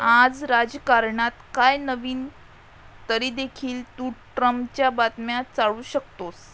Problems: background sounds at intervals